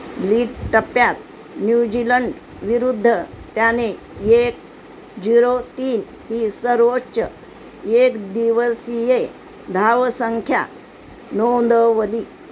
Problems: constant background noise